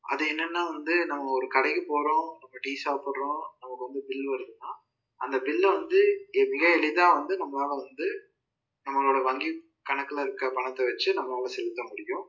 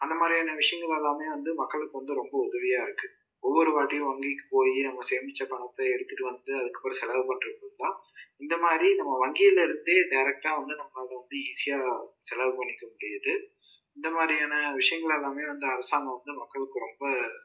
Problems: low volume